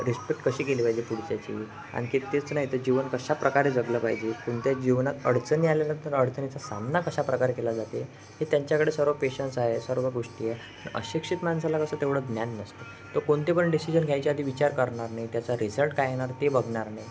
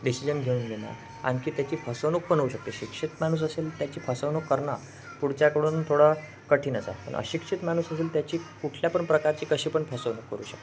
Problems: constant background noise, continuous background conversations